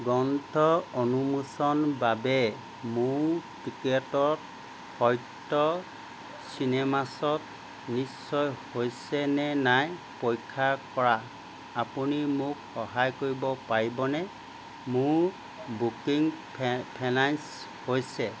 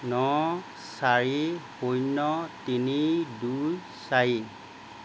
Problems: constant background noise